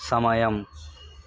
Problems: none marked